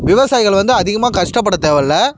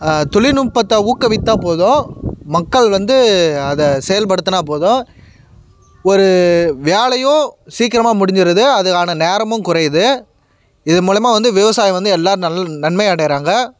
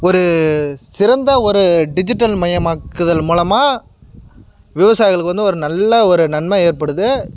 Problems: background sounds at intervals